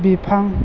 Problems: constant background noise